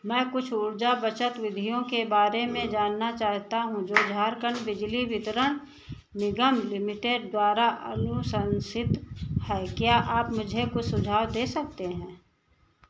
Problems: none marked